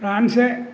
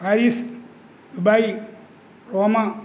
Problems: constant background noise